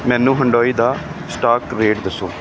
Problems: background sounds at intervals